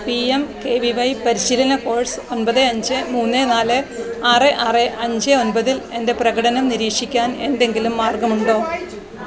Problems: constant background noise